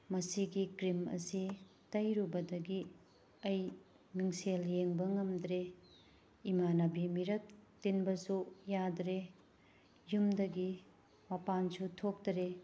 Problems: background sounds at intervals